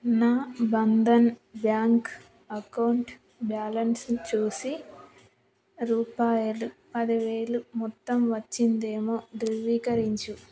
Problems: background sounds at intervals, background conversations at intervals